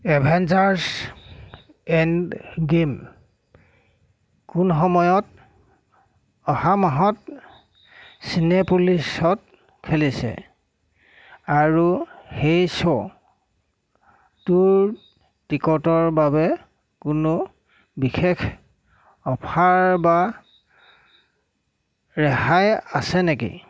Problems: constant background noise